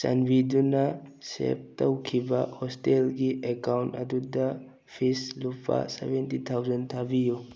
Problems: none marked